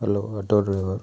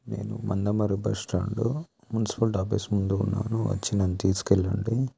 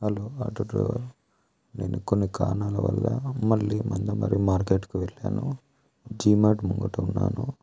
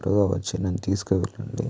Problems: low volume